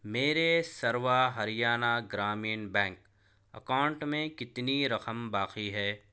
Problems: none marked